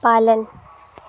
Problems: constant background noise